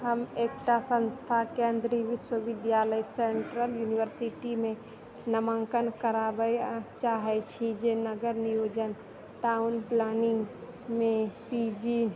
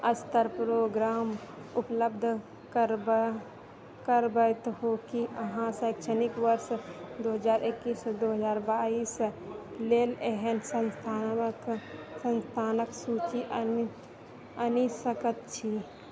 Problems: background sounds at intervals, continuous background conversations